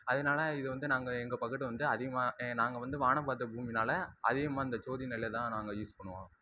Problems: none marked